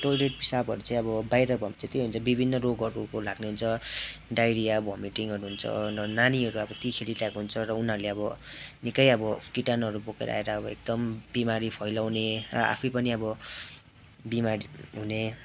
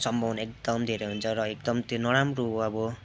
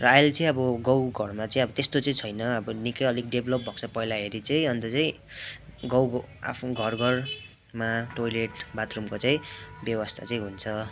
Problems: constant background noise, background conversations at intervals